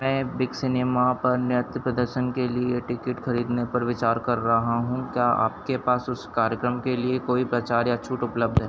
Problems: constant background noise